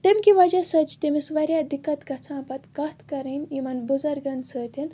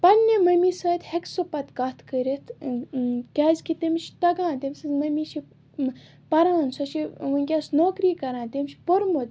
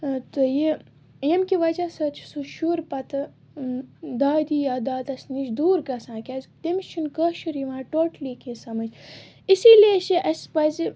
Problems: constant background noise